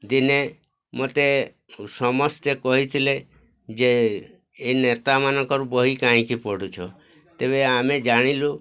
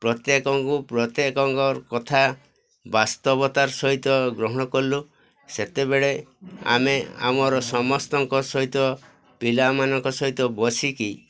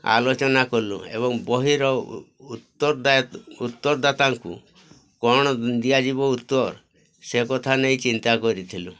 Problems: constant background noise, continuous background conversations